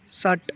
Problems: continuous background conversations